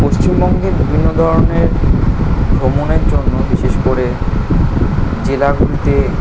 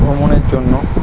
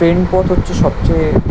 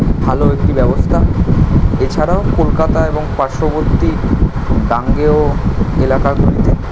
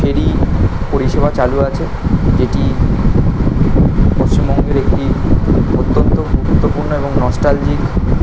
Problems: constant background noise